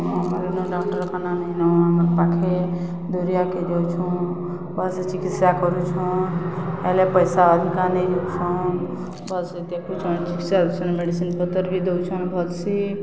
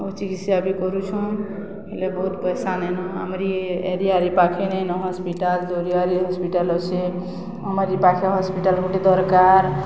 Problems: constant background noise